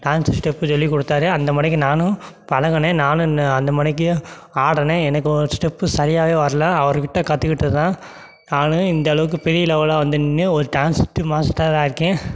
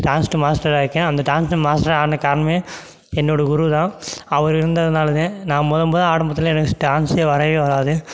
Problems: background sounds at intervals